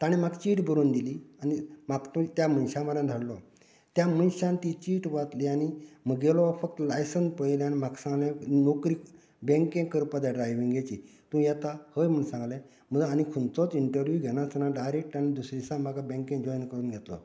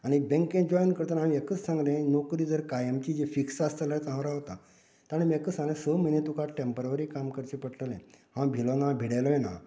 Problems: continuous background conversations